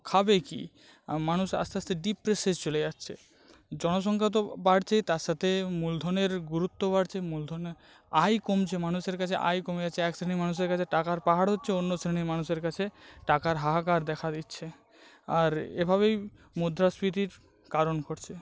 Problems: background sounds at intervals